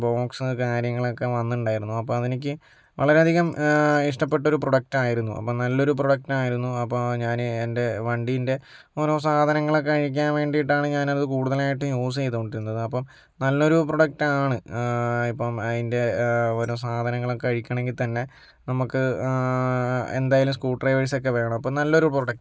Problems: none marked